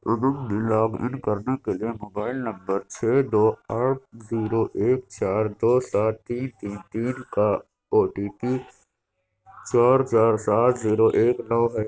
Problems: constant background noise